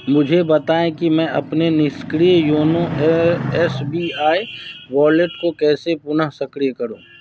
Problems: constant background noise